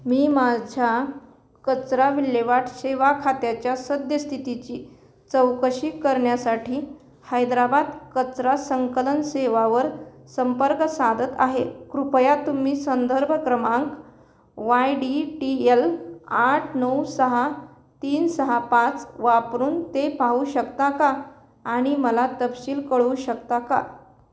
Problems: none marked